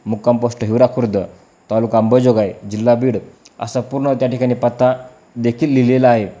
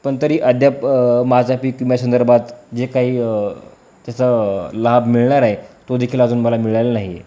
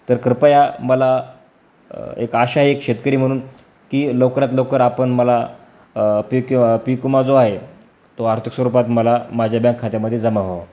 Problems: background sounds at intervals